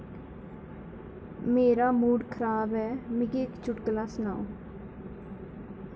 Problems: constant background noise